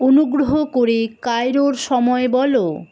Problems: none marked